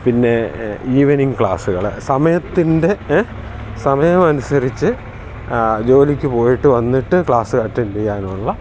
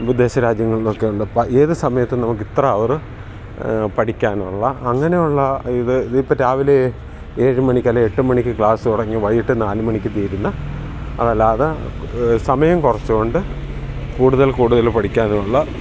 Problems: background sounds at intervals